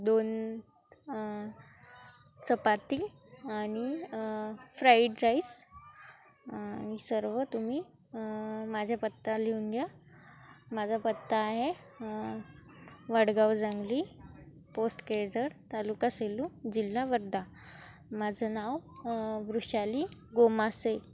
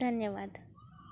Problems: constant background noise, continuous background conversations